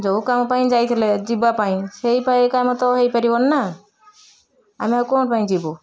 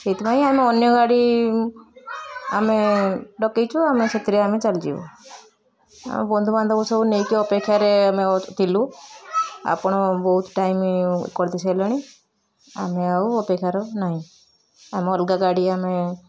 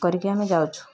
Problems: constant background noise, continuous background conversations